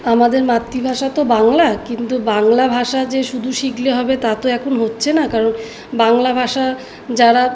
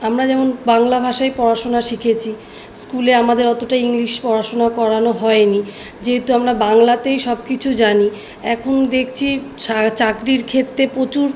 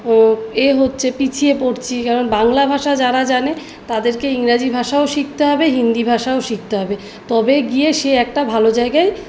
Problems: background sounds at intervals